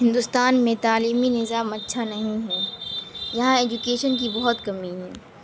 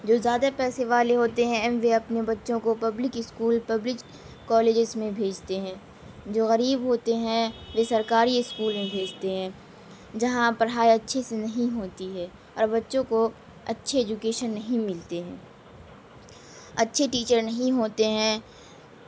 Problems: constant background noise, low volume